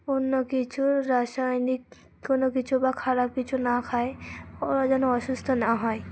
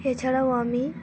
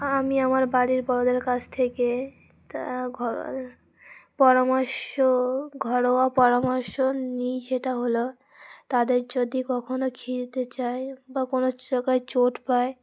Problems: constant background noise